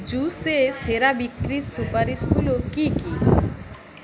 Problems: constant background noise